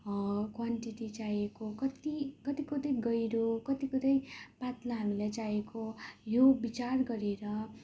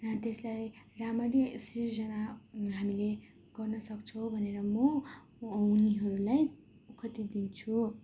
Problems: none marked